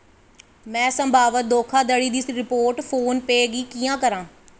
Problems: echo